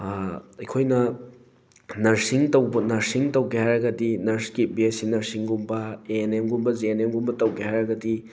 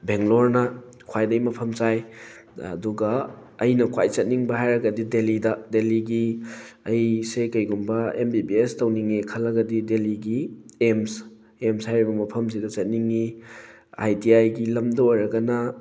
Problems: background sounds at intervals